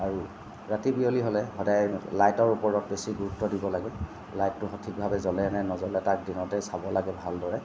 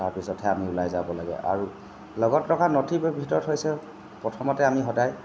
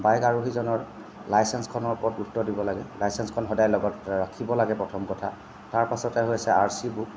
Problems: constant background noise